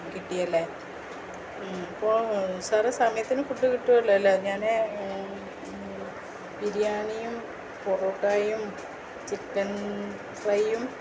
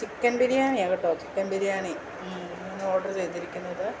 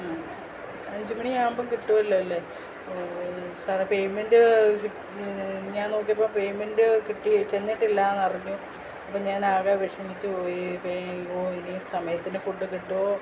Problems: constant background noise